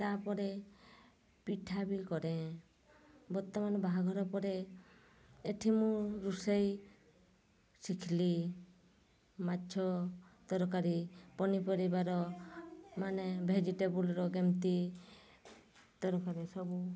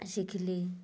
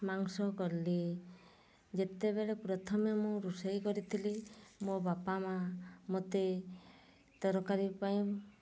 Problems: low volume